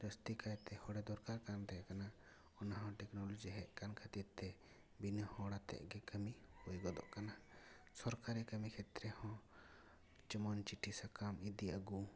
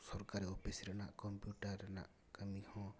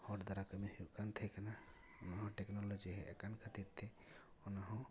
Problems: low volume